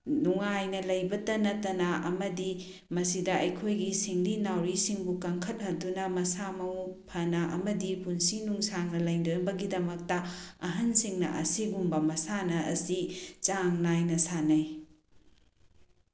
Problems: none marked